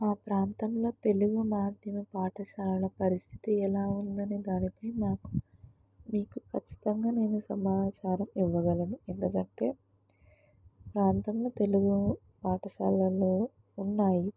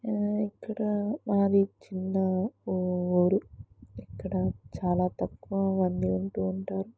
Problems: background sounds at intervals